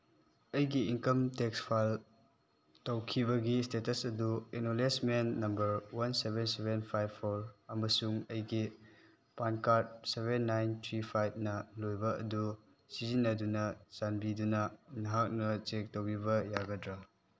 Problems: none marked